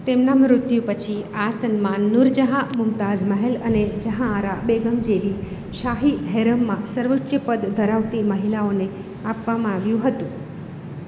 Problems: none marked